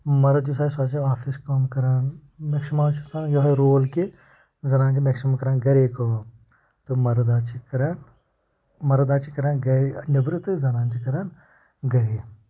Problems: background sounds at intervals, low volume